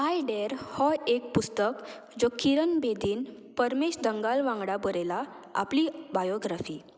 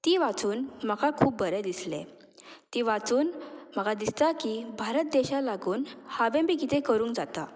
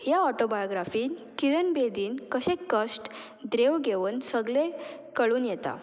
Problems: none marked